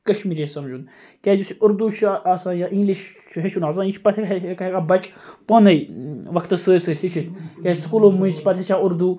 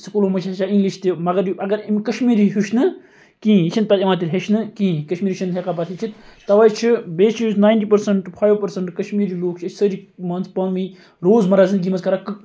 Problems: continuous background conversations